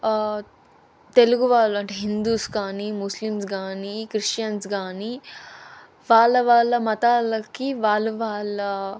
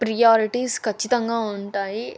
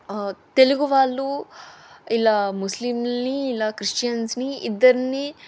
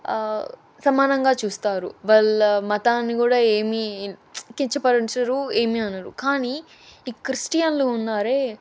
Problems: none marked